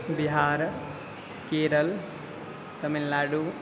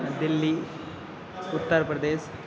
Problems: constant background noise, continuous background conversations